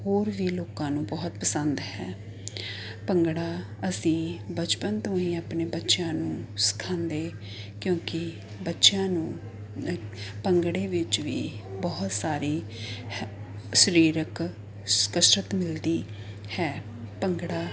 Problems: constant background noise